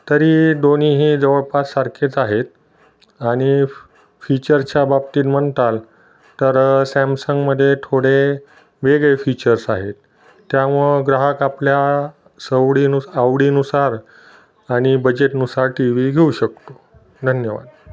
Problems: background sounds at intervals, background conversations at intervals